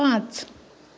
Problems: none marked